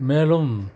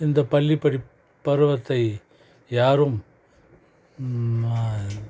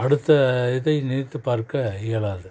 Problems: none marked